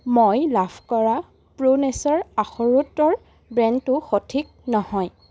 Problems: constant background noise